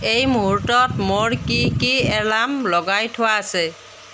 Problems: none marked